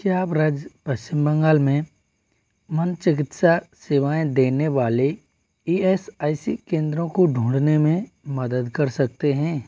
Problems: constant background noise